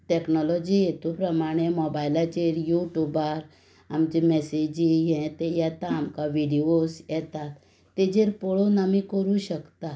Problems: background sounds at intervals